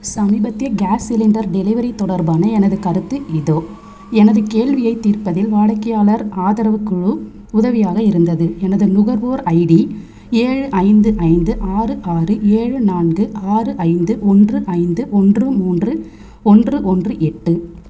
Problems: constant background noise